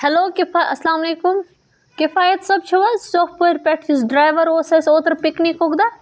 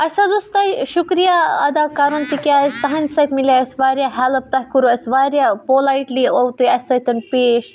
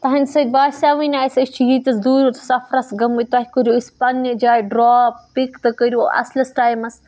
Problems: background sounds at intervals